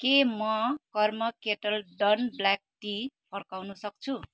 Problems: none marked